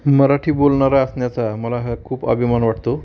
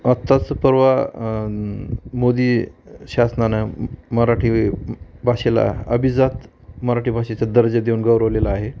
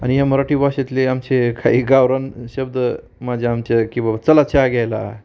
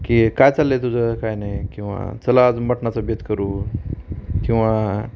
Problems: none marked